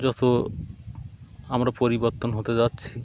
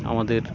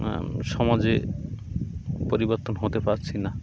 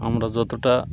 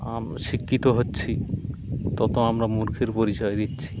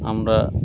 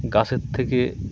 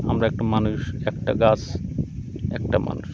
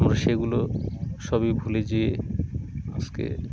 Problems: constant background noise, continuous background conversations